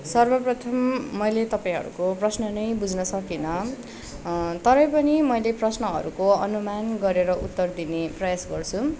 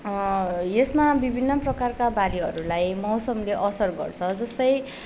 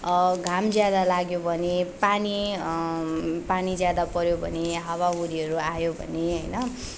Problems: background sounds at intervals